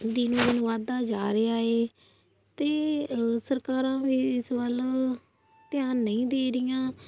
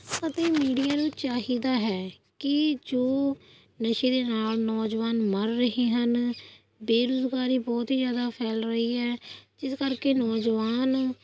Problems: constant background noise